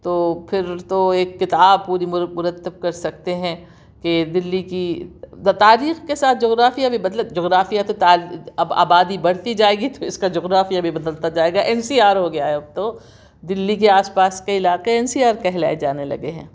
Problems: none marked